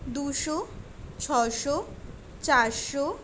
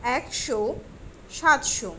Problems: constant background noise